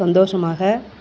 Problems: none marked